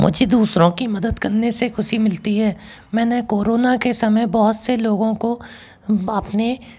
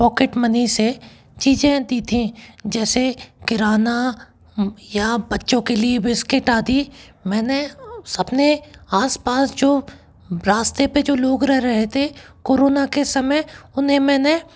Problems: background sounds at intervals